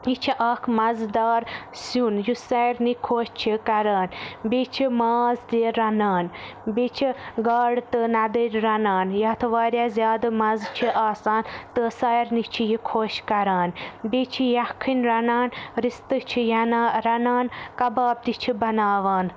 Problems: constant background noise